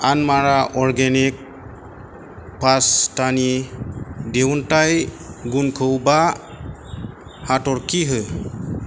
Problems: constant background noise